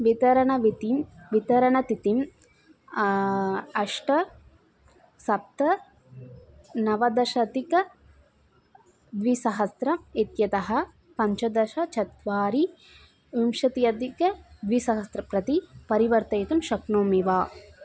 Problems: constant background noise, background conversations at intervals